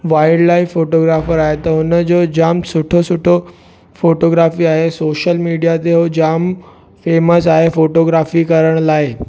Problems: background sounds at intervals